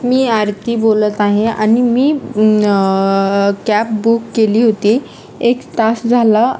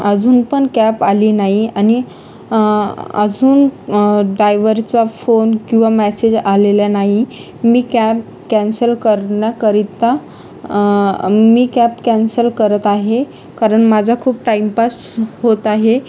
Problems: constant background noise, continuous background conversations